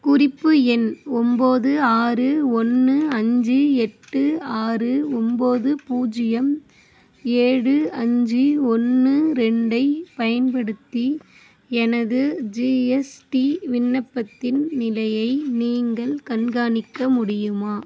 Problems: none marked